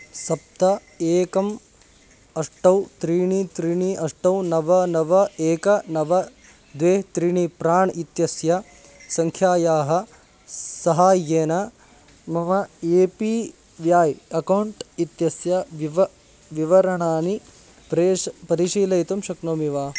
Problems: constant background noise